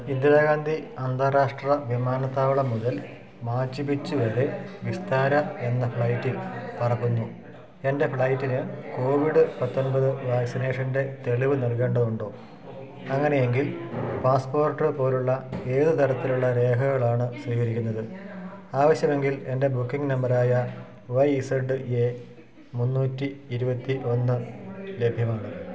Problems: background sounds at intervals